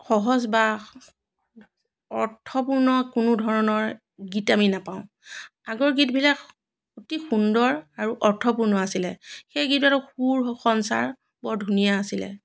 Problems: none marked